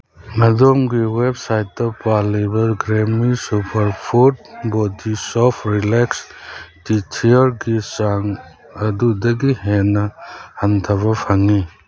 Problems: constant background noise